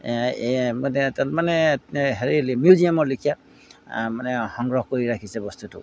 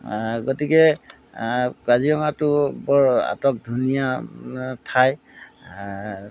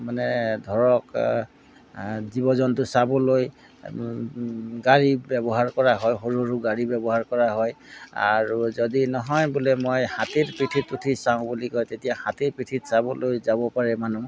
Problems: background sounds at intervals